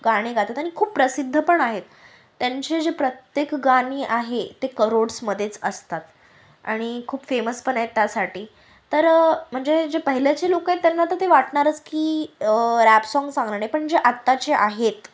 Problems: constant background noise